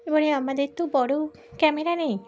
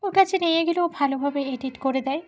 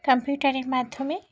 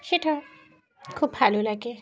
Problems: constant background noise